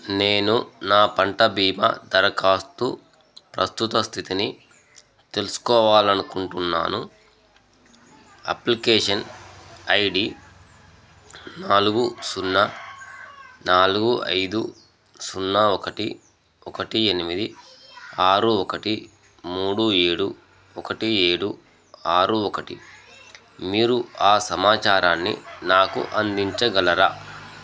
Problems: none marked